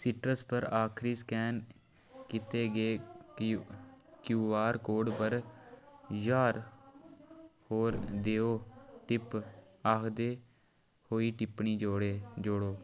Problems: none marked